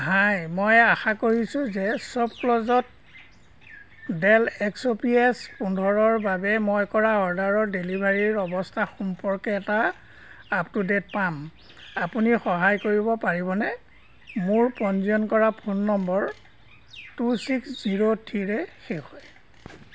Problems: none marked